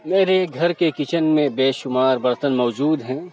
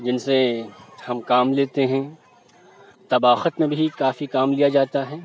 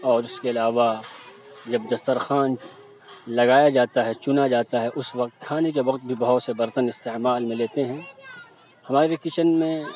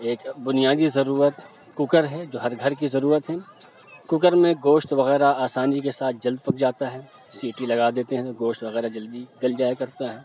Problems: constant background noise